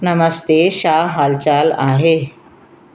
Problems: constant background noise, echo